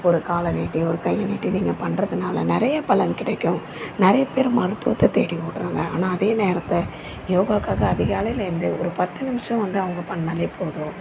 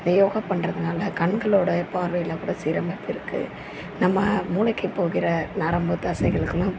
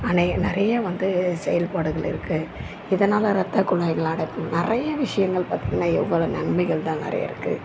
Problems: constant background noise